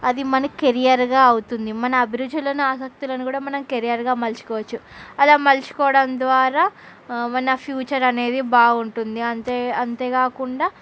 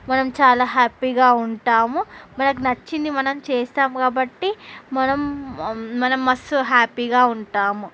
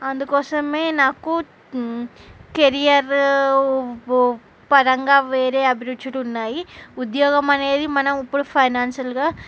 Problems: none marked